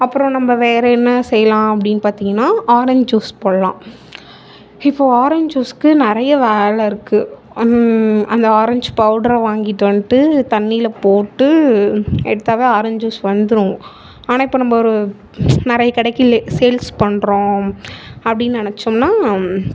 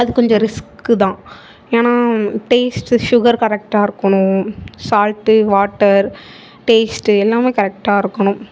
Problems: background sounds at intervals, background conversations at intervals